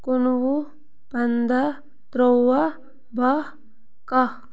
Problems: constant background noise